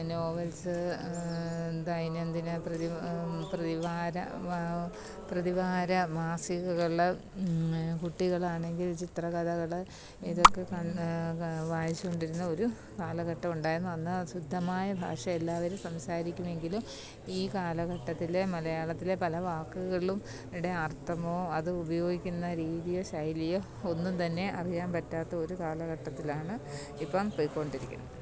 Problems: none marked